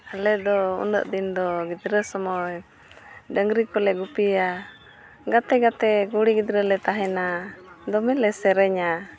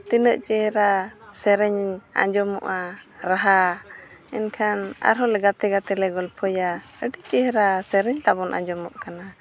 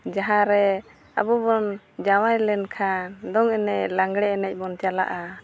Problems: none marked